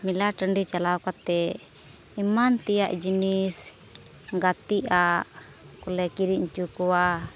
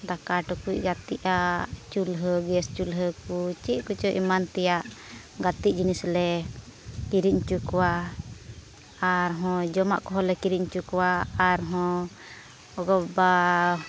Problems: background sounds at intervals